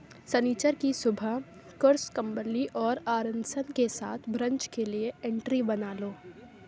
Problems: none marked